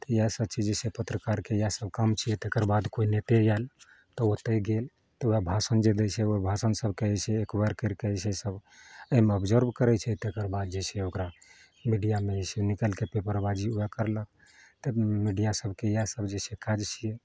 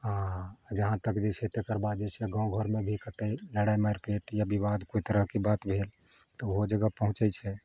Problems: none marked